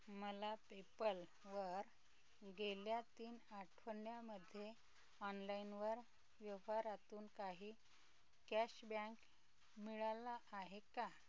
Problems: background sounds at intervals, low volume